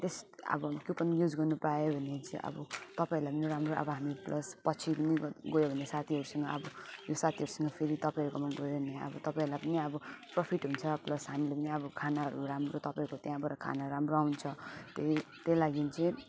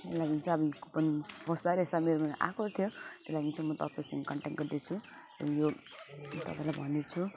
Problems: background sounds at intervals